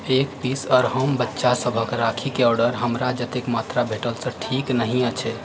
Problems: background sounds at intervals